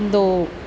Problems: background sounds at intervals